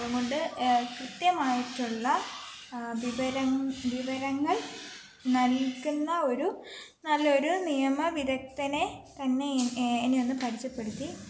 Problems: none marked